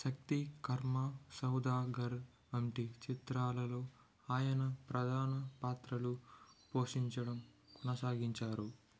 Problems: background sounds at intervals, low volume